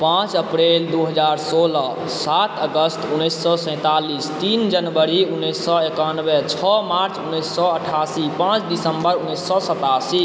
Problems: constant background noise